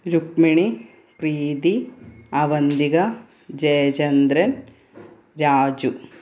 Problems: background sounds at intervals